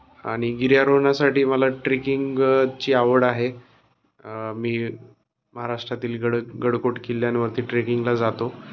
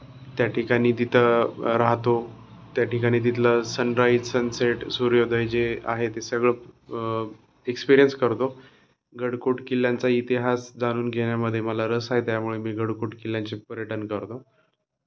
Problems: constant background noise, background conversations at intervals